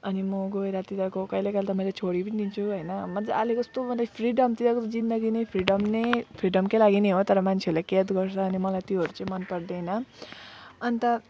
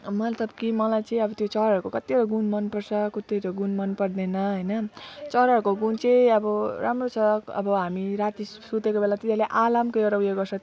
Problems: none marked